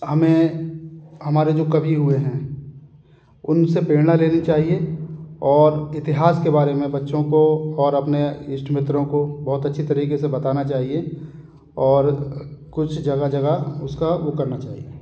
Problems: none marked